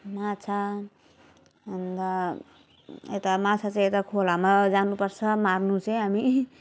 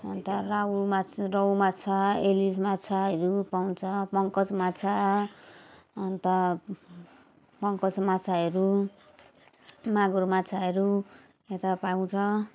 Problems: continuous background conversations